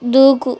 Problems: constant background noise